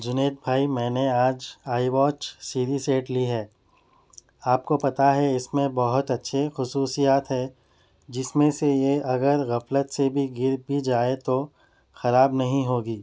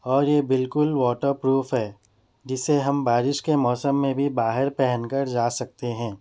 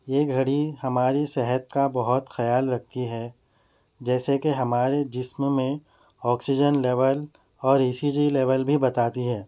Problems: none marked